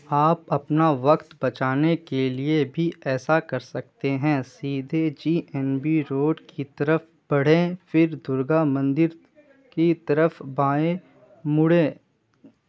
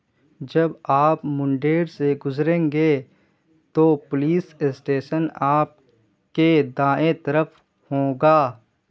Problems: constant background noise